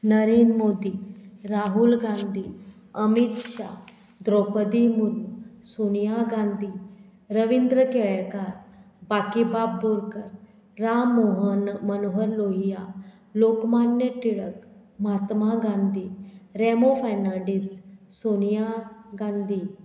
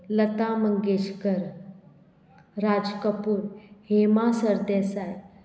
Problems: none marked